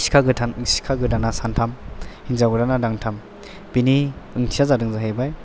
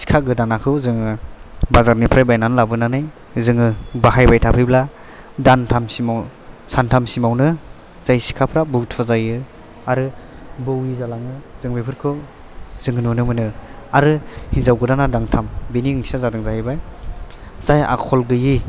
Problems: background sounds at intervals